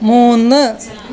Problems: constant background noise, continuous background conversations